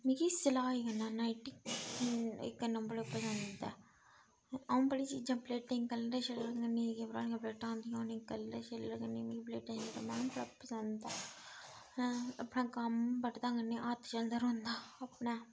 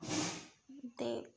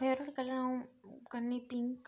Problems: background sounds at intervals